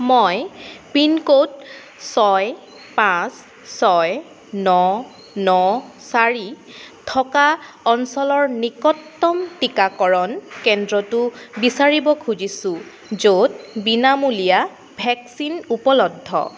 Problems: constant background noise